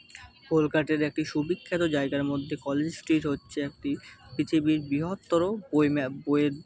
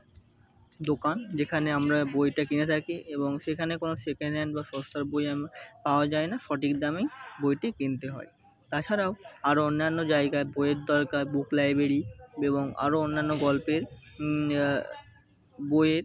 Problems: constant background noise, continuous background conversations